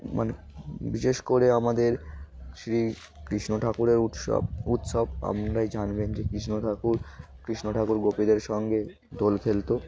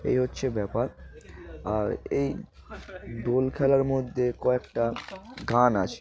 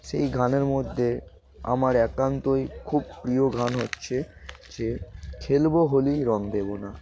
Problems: constant background noise